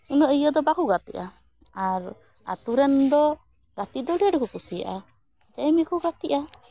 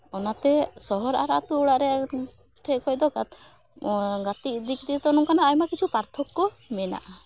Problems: none marked